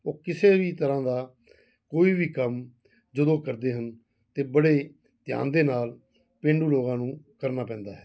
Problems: background sounds at intervals